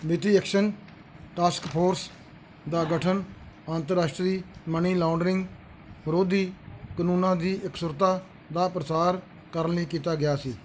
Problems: none marked